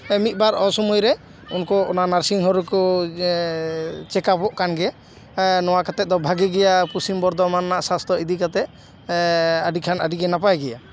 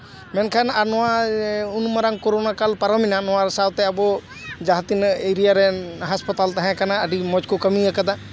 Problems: background conversations at intervals